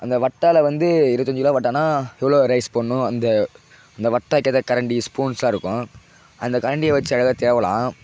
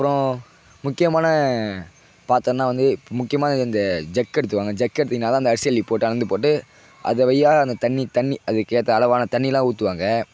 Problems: constant background noise